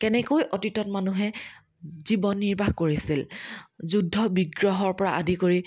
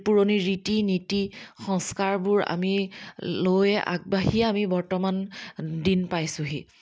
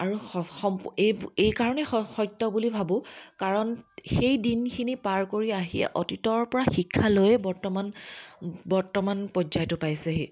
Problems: none marked